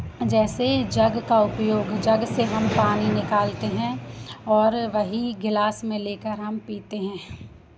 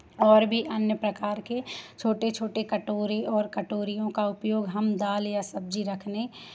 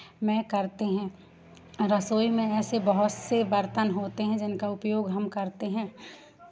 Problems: constant background noise